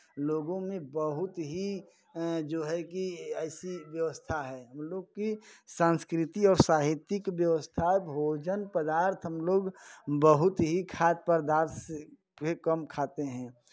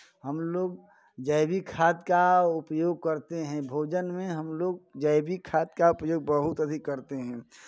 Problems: background sounds at intervals